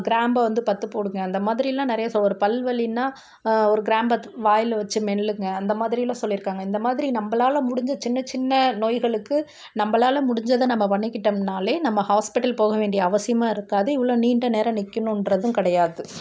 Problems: none marked